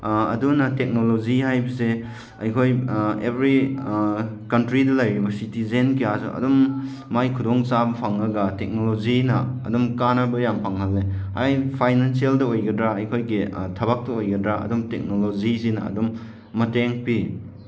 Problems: none marked